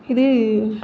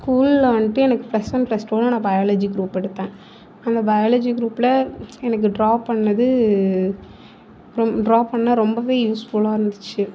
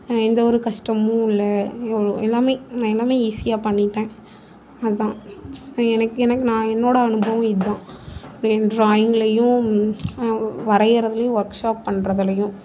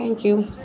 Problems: constant background noise